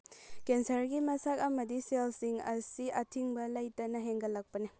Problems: low volume